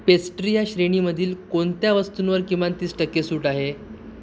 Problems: none marked